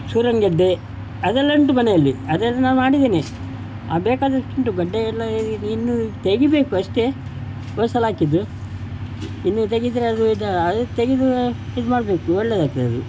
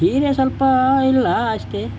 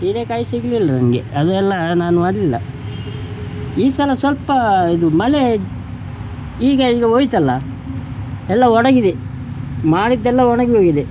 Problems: background sounds at intervals